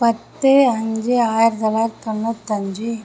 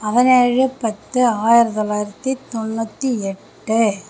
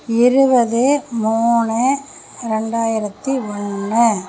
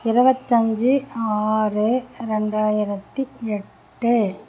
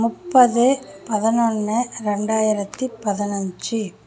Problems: none marked